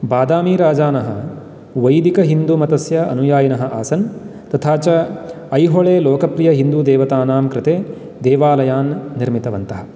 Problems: constant background noise